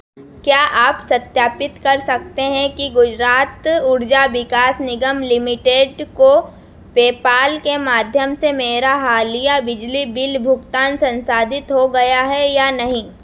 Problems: none marked